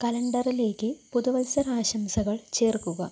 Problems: background sounds at intervals, low volume